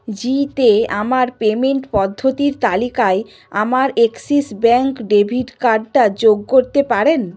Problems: constant background noise